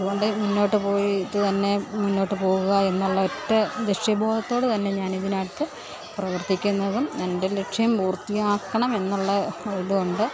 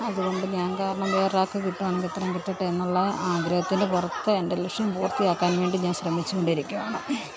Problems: none marked